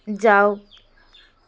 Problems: constant background noise